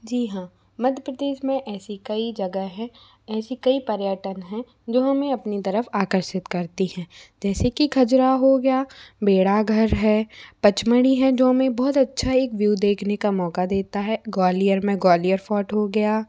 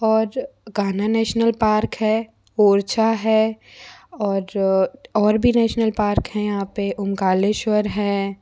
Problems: constant background noise